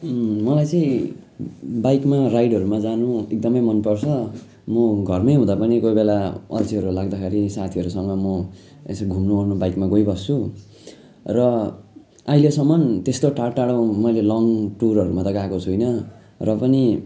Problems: background sounds at intervals